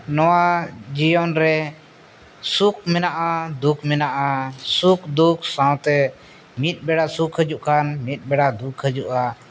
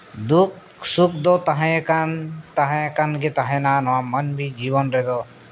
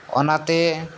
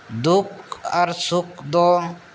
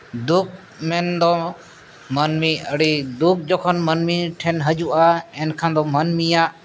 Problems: background sounds at intervals